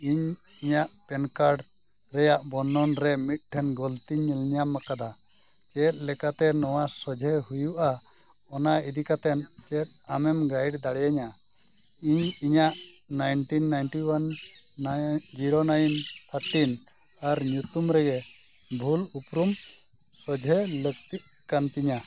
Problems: constant background noise